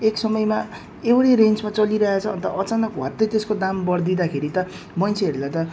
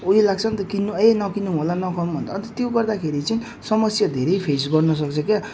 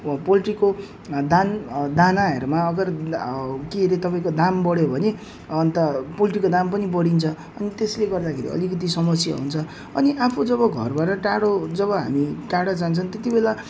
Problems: none marked